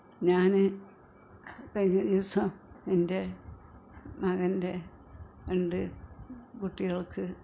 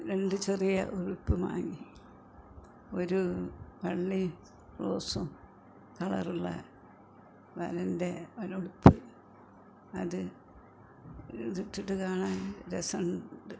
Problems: background sounds at intervals